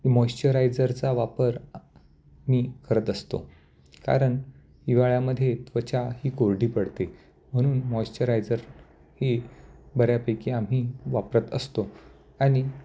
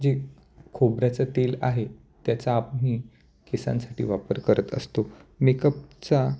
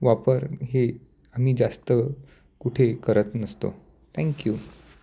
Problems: none marked